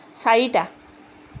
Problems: none marked